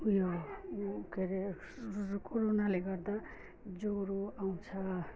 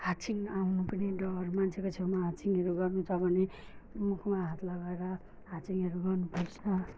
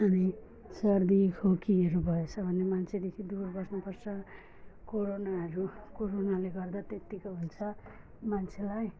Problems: none marked